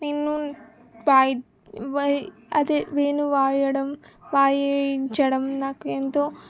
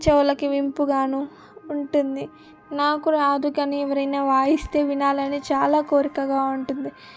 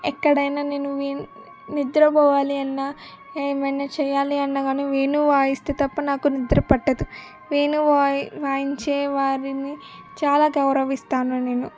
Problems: background sounds at intervals